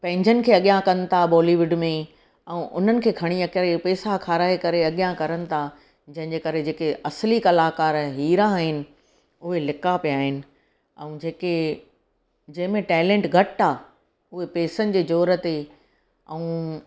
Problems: none marked